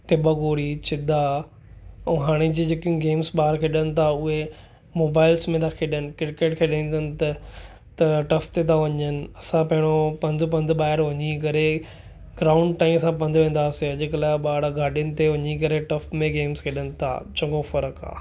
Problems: none marked